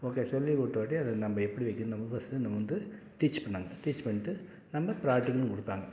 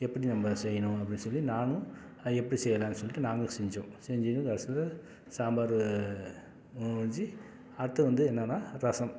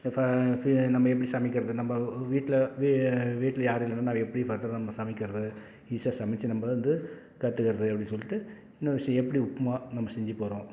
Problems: none marked